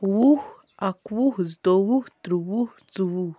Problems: none marked